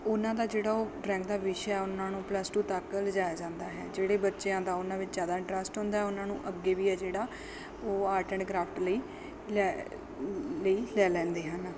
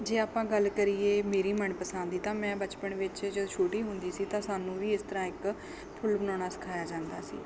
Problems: background sounds at intervals, background conversations at intervals